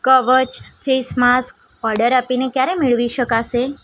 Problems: background sounds at intervals